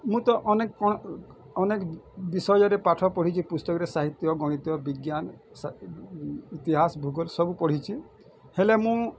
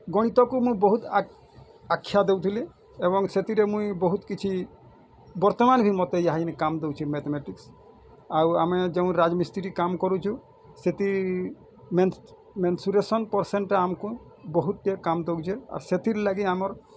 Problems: none marked